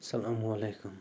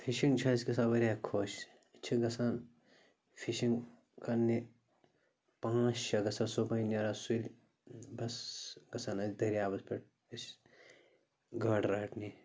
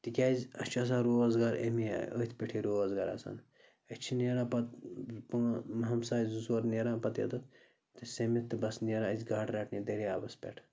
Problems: constant background noise